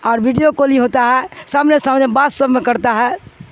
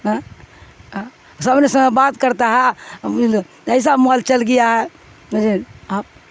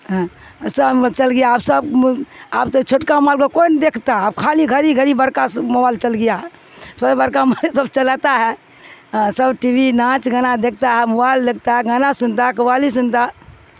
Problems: constant background noise